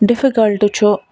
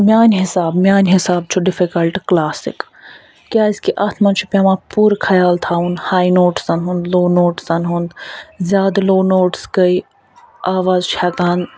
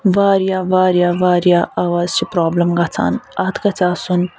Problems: none marked